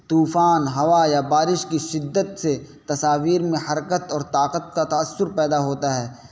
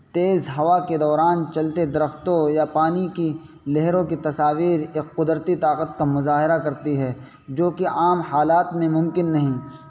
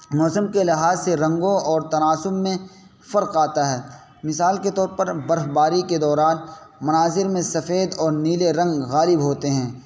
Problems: constant background noise